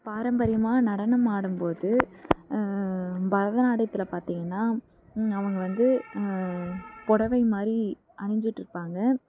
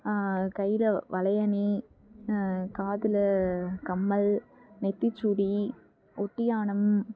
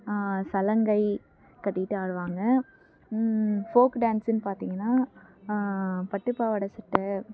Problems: background sounds at intervals